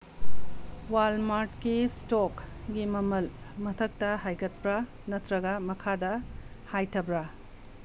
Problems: background sounds at intervals